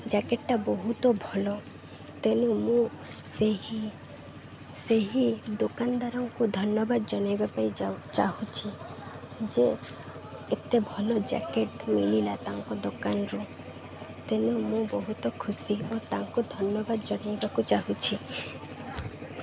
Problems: constant background noise